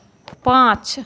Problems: constant background noise